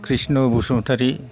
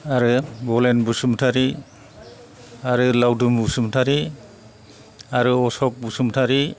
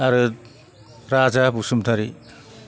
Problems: none marked